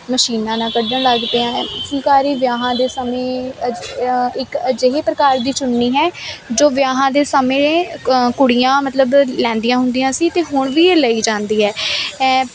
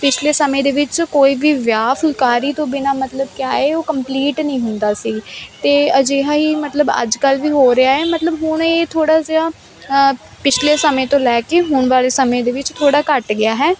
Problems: background sounds at intervals